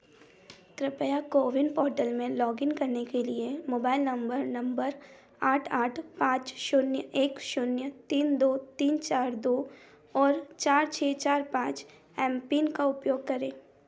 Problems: background sounds at intervals